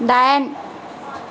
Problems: constant background noise